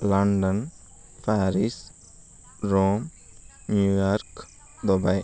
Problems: constant background noise